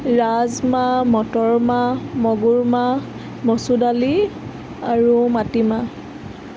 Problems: constant background noise